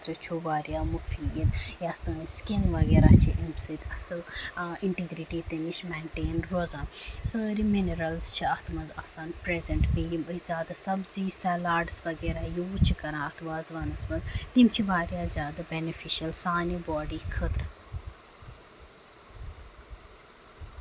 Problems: none marked